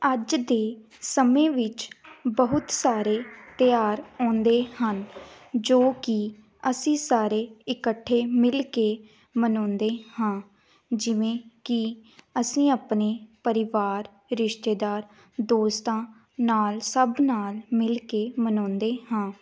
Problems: none marked